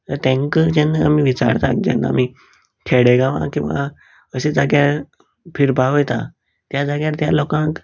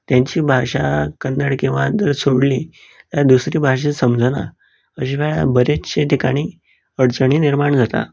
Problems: none marked